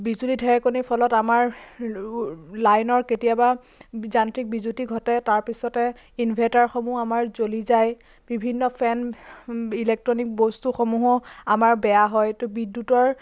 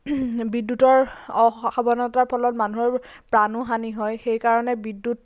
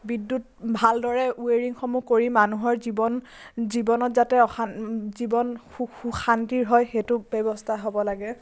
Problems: constant background noise